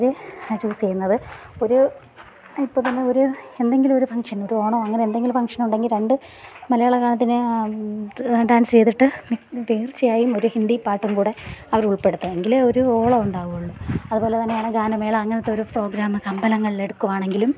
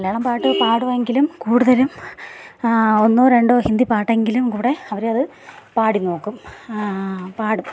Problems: background sounds at intervals